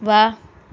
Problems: none marked